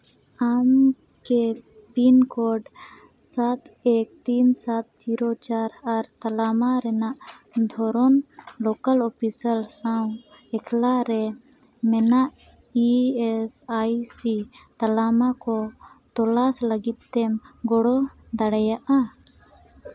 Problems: constant background noise